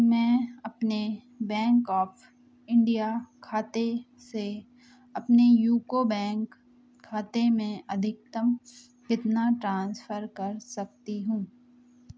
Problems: none marked